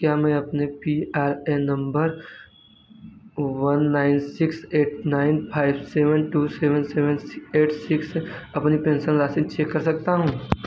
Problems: constant background noise